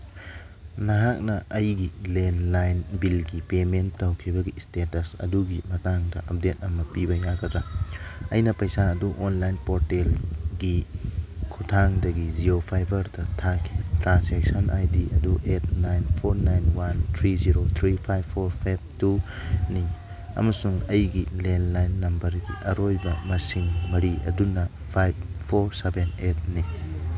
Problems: none marked